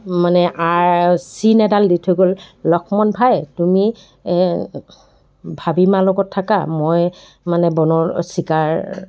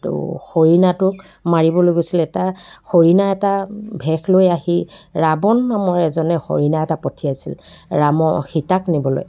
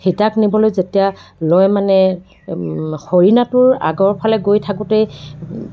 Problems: background sounds at intervals, background conversations at intervals